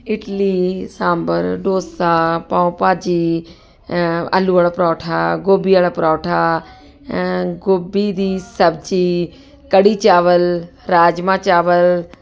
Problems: constant background noise